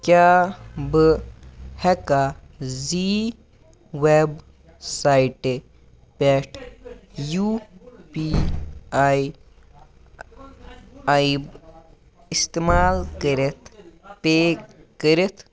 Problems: continuous background conversations